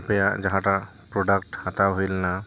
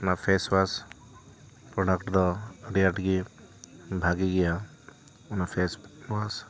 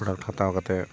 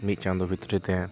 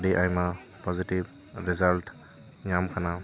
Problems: continuous background conversations